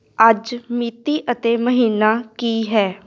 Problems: constant background noise